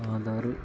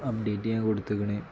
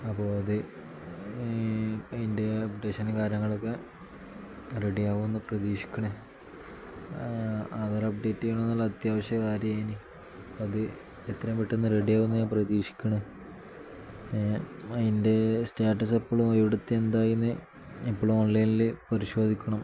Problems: none marked